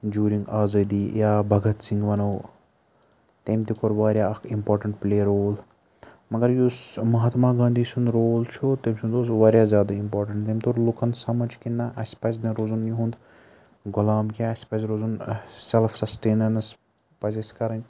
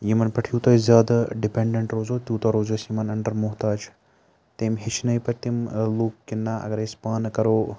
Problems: none marked